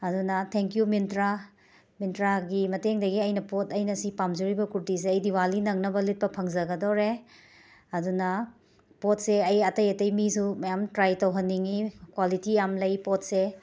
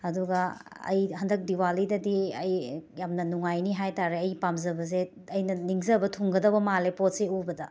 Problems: background sounds at intervals